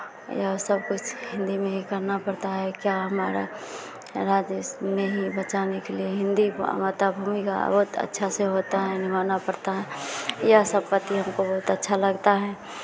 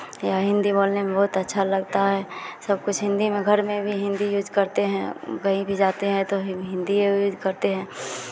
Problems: continuous background conversations